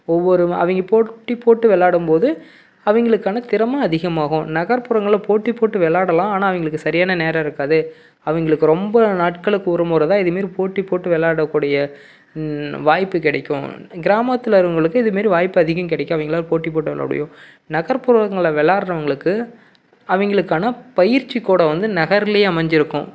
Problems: background sounds at intervals